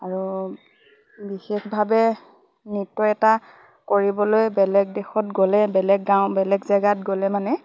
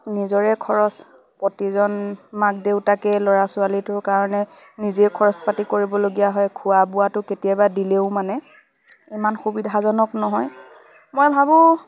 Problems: constant background noise, background conversations at intervals